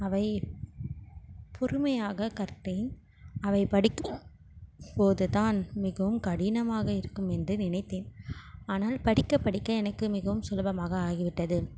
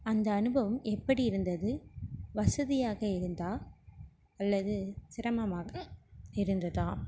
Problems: constant background noise